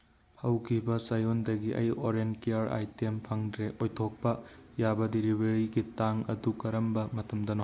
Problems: none marked